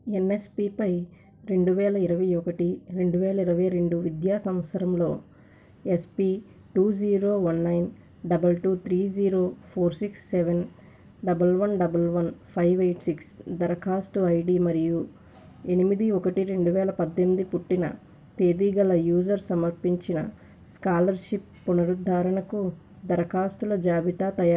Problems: constant background noise